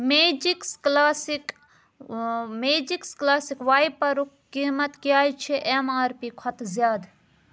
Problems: none marked